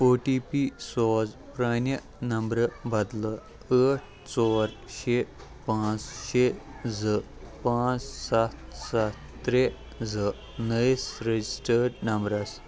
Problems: constant background noise, continuous background conversations